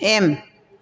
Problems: none marked